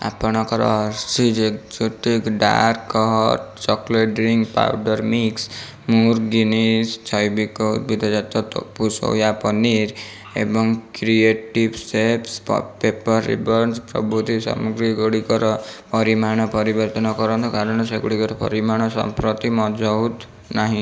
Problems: background sounds at intervals